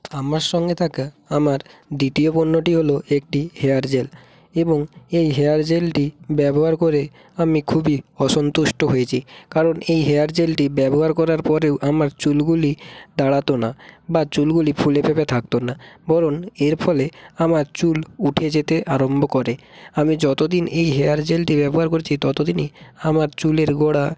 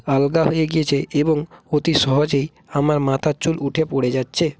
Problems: none marked